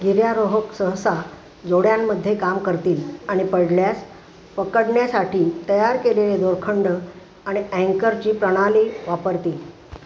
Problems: constant background noise